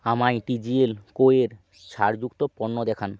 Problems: none marked